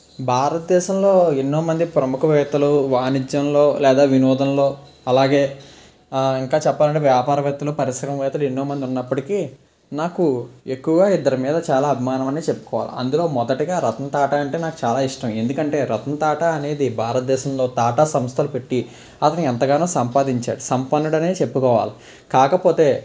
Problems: constant background noise